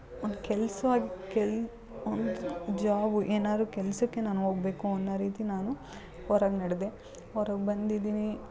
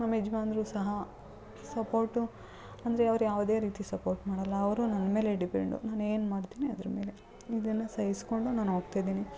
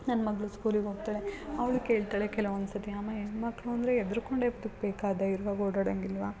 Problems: background sounds at intervals, background conversations at intervals